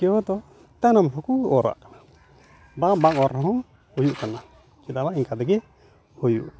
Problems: none marked